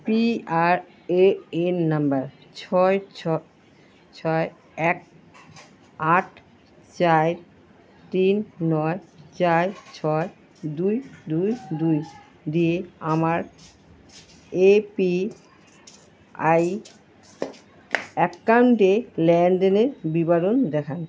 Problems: constant background noise